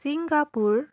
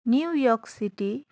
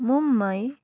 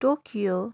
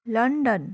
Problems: none marked